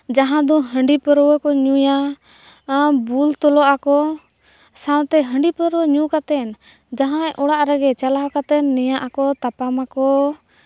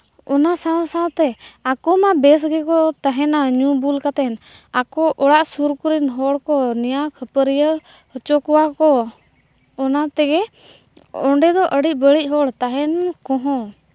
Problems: none marked